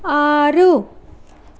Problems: constant background noise